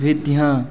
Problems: constant background noise, background conversations at intervals